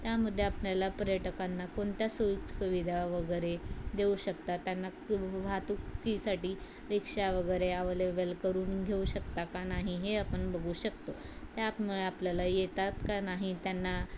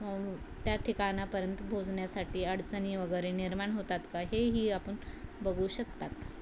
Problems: none marked